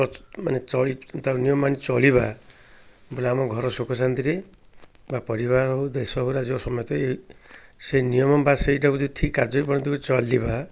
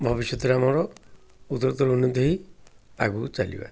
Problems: none marked